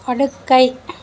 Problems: none marked